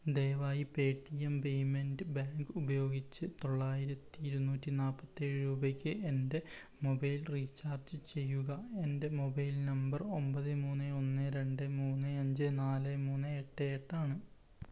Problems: low volume